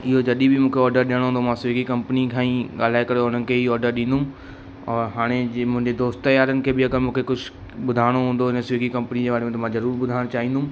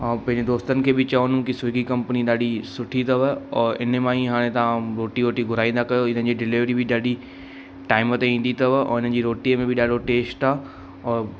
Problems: constant background noise, echo